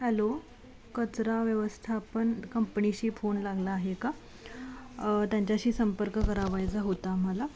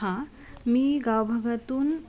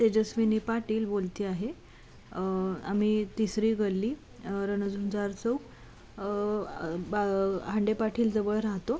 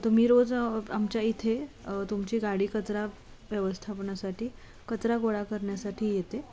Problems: constant background noise